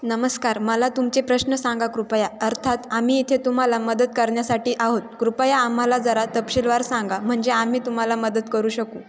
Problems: constant background noise, echo